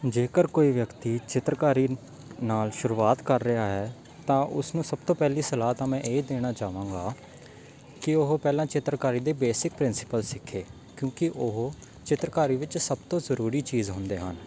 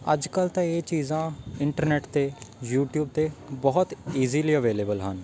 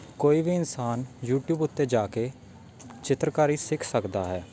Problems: constant background noise